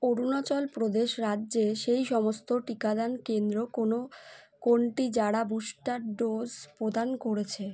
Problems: none marked